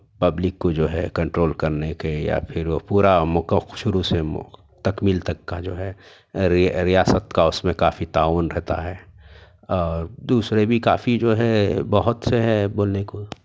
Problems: none marked